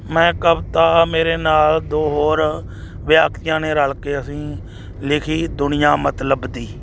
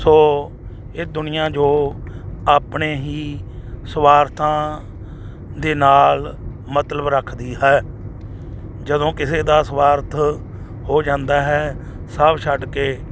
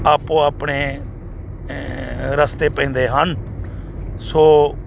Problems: none marked